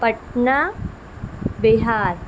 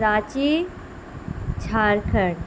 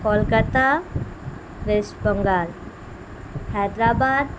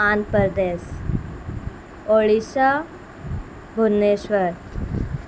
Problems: constant background noise